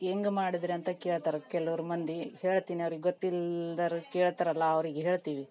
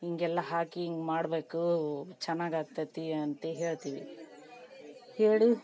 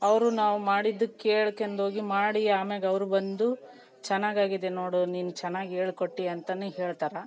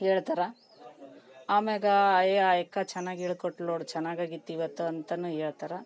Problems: background conversations at intervals